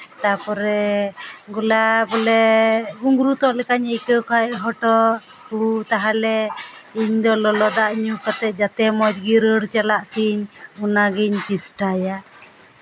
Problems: none marked